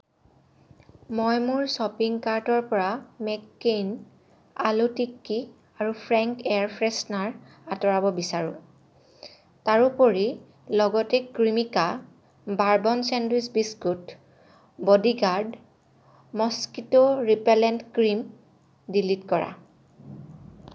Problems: none marked